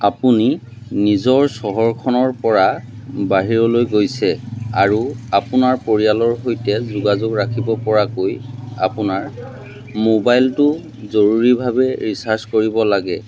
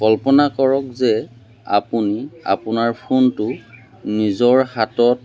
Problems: none marked